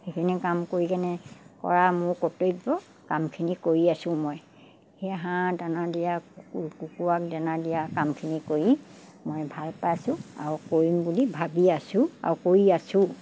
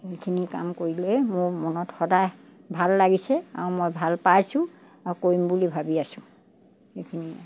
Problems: background sounds at intervals